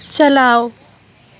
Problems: none marked